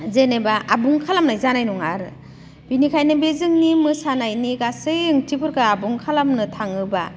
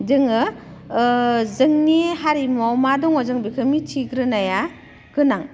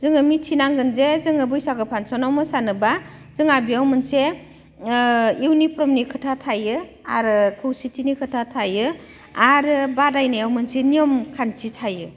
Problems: none marked